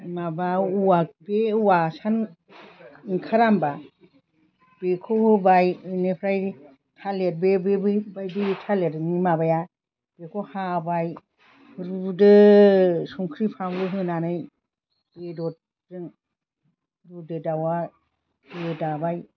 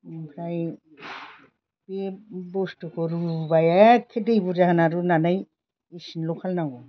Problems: constant background noise